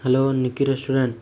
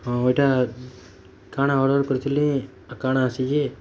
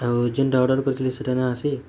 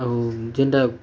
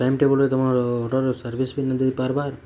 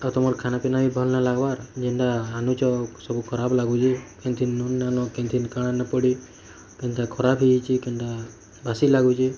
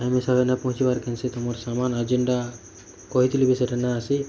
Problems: constant background noise